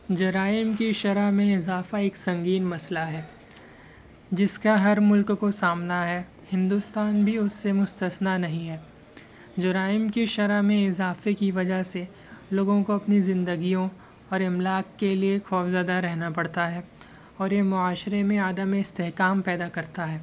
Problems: constant background noise